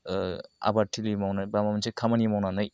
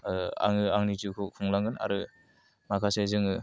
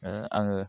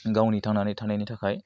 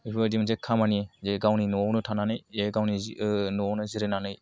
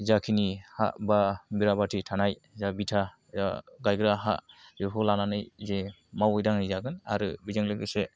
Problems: none marked